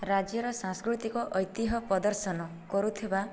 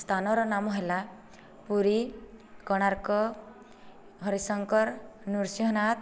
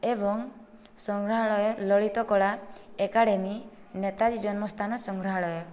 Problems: low volume